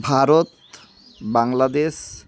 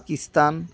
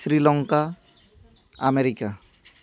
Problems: background sounds at intervals